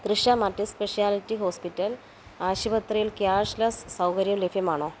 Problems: background sounds at intervals